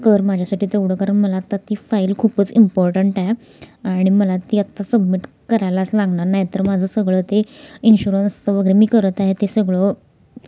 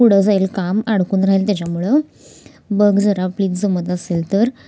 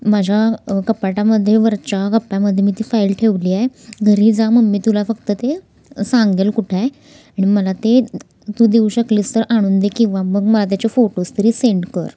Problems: none marked